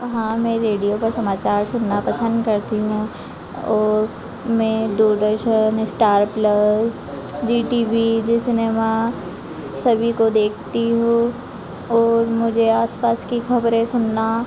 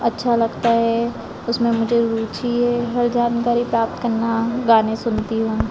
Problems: constant background noise